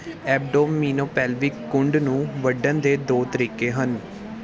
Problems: continuous background conversations